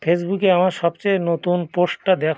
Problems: background sounds at intervals